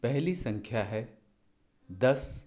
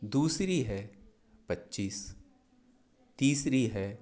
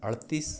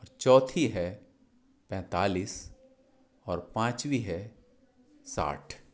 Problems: none marked